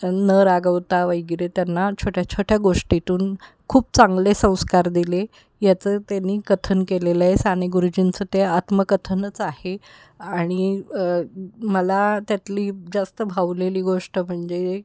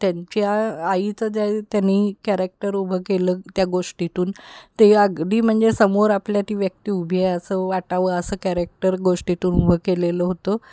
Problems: constant background noise